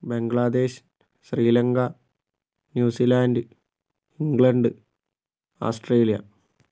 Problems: none marked